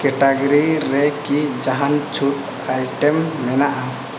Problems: constant background noise